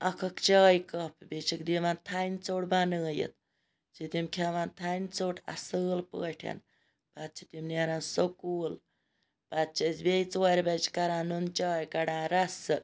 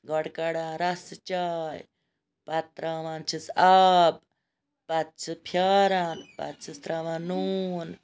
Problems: background sounds at intervals